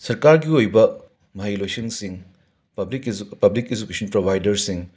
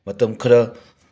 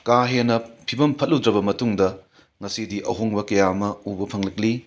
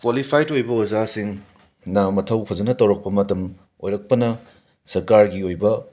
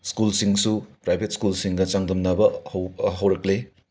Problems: background sounds at intervals